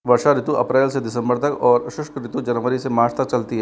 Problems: none marked